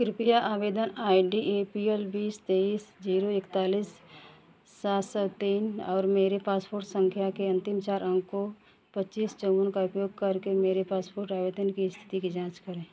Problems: none marked